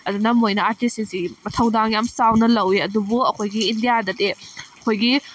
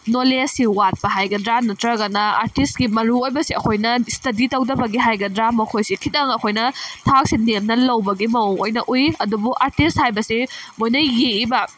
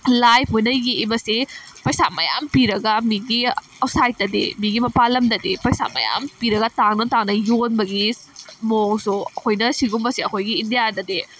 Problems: background sounds at intervals